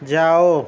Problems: constant background noise